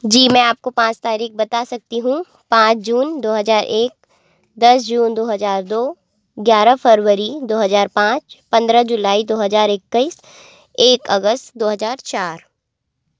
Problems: constant background noise